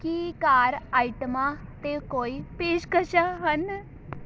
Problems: background sounds at intervals